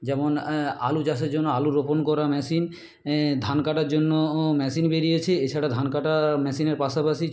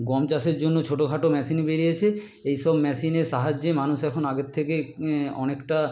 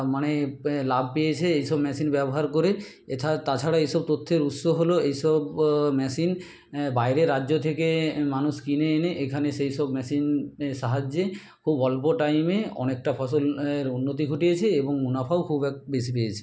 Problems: none marked